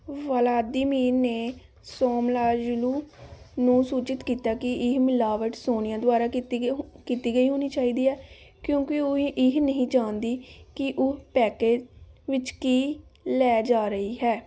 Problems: background sounds at intervals